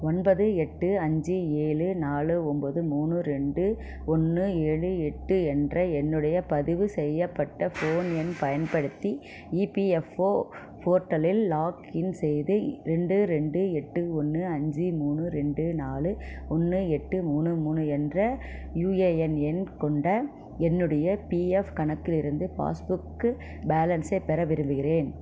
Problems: background sounds at intervals